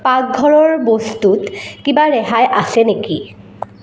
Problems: background sounds at intervals, echo